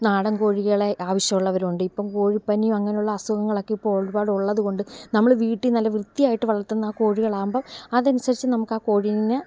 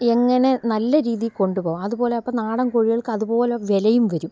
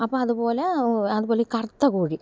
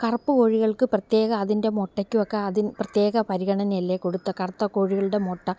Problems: background sounds at intervals